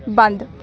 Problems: background sounds at intervals